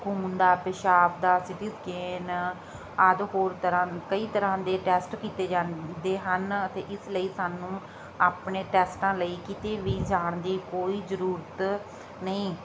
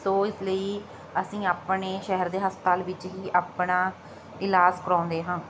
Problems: constant background noise